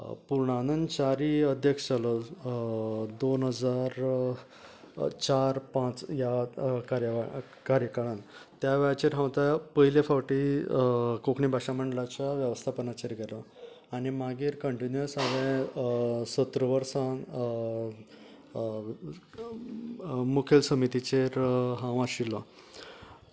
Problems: none marked